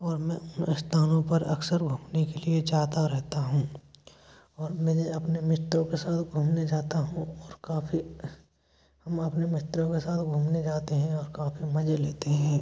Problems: background sounds at intervals